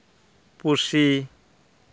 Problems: none marked